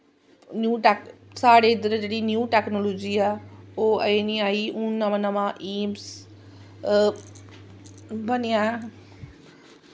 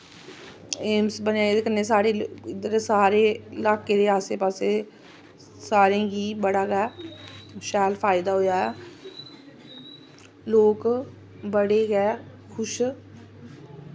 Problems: constant background noise